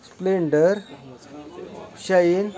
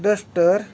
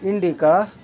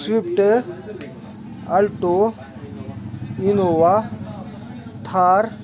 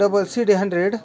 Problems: constant background noise, continuous background conversations